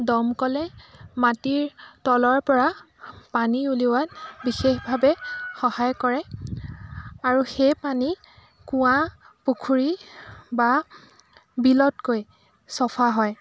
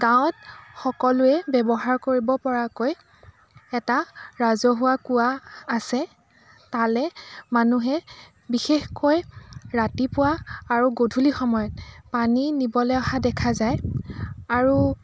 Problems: constant background noise, background conversations at intervals